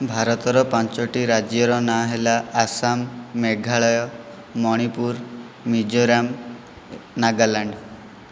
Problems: none marked